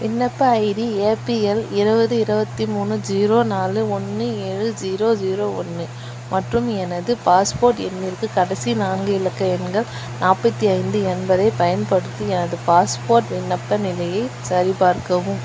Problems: constant background noise